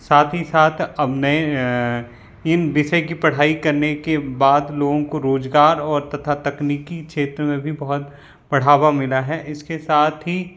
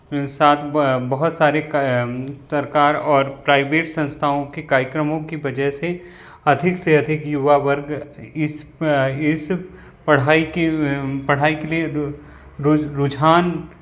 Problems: none marked